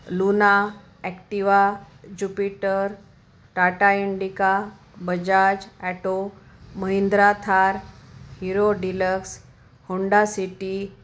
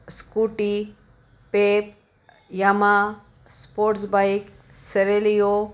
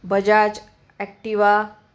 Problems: background sounds at intervals